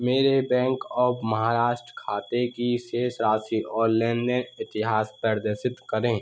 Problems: constant background noise